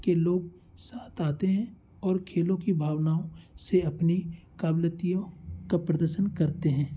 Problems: constant background noise